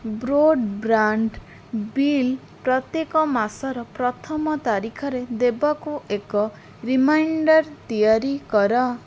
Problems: none marked